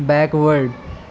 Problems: constant background noise